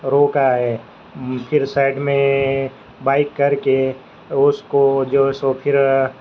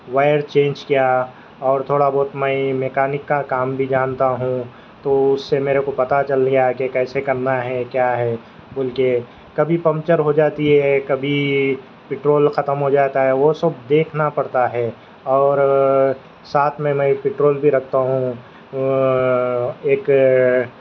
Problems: constant background noise